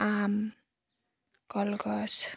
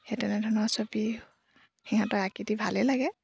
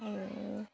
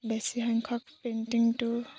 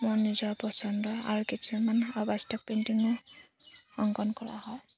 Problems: constant background noise